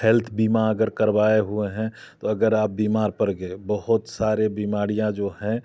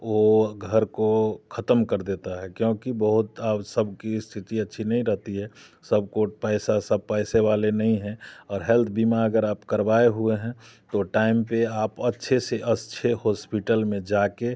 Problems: background sounds at intervals